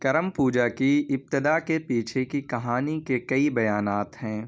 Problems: background sounds at intervals